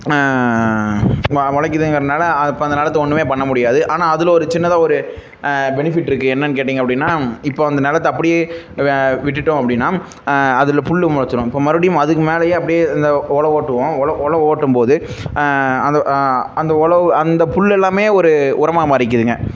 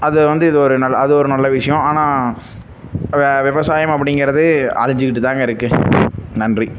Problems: none marked